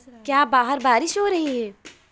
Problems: none marked